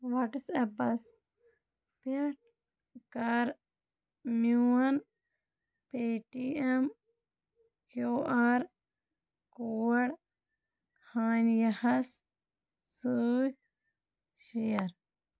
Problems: none marked